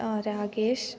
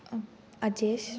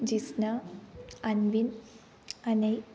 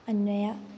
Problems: none marked